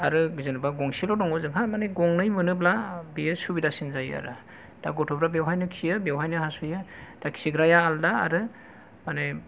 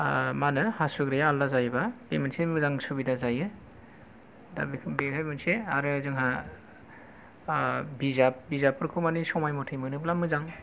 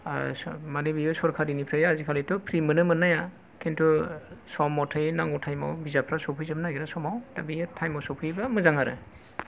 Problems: none marked